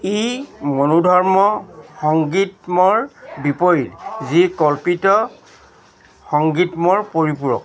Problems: constant background noise, continuous background conversations